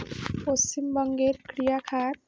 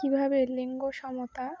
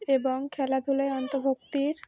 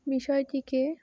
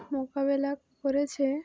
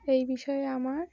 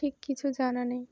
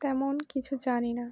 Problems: background sounds at intervals